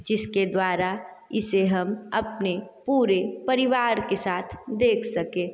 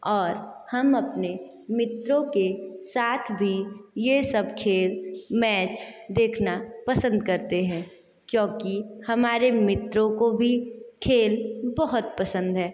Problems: constant background noise, echo